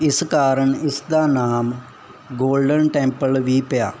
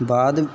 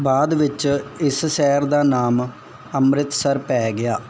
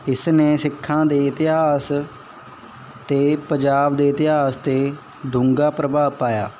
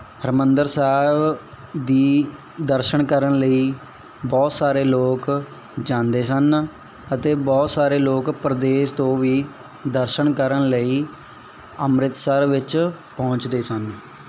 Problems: background sounds at intervals